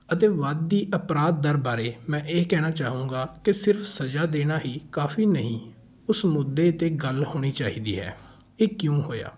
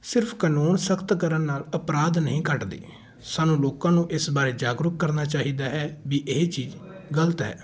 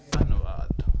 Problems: background sounds at intervals, background conversations at intervals